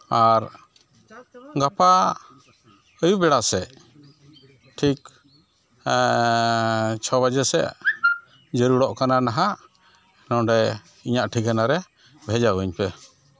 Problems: background sounds at intervals, background conversations at intervals